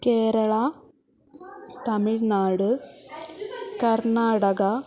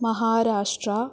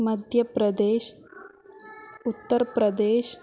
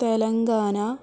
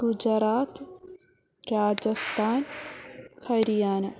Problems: constant background noise